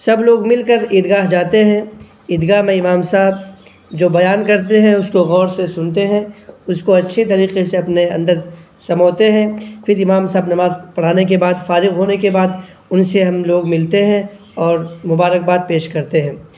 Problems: none marked